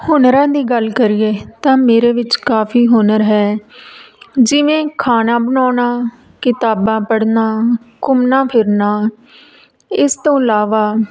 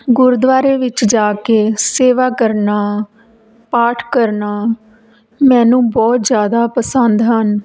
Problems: background sounds at intervals